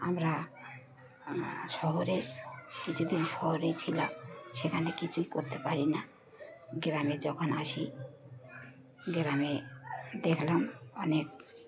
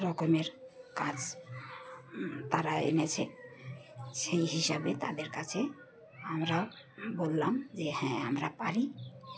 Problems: background sounds at intervals, background conversations at intervals